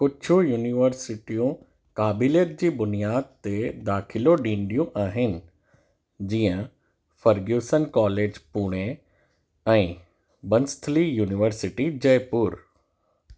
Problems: constant background noise